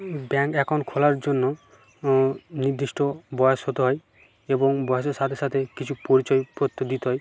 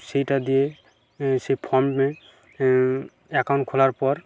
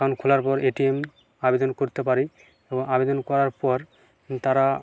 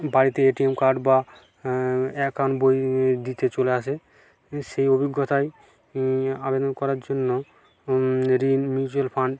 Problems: continuous background conversations